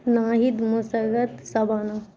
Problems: constant background noise